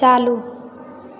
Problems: constant background noise